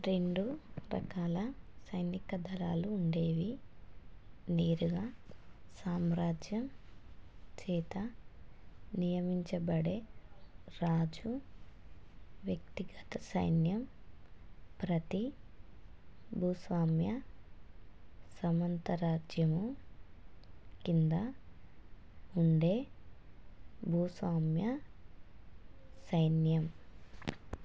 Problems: low volume